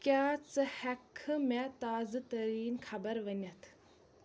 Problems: none marked